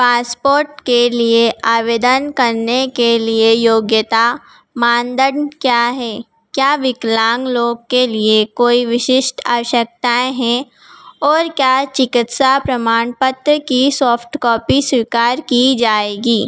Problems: background sounds at intervals